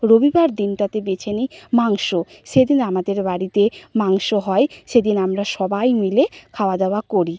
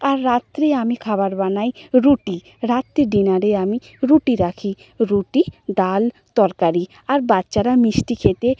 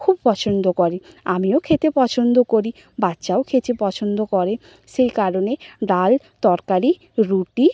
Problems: none marked